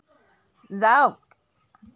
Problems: background sounds at intervals